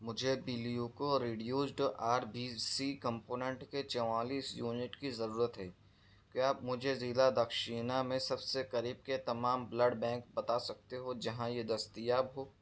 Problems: none marked